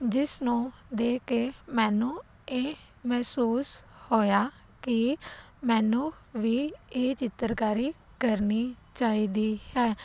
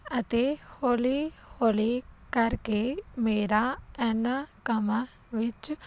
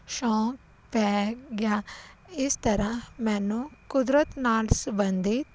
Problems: none marked